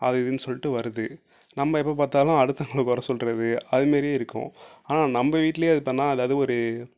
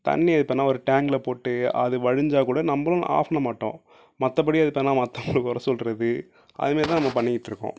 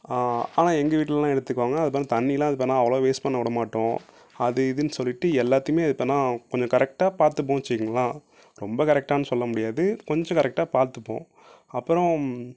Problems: none marked